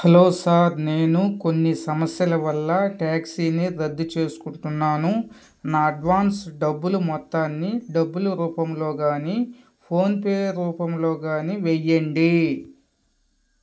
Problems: none marked